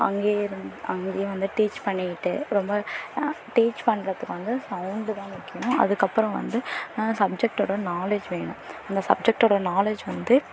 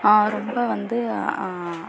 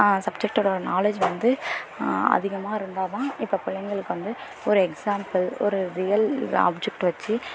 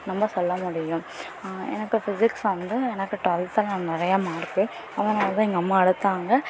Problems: constant background noise, continuous background conversations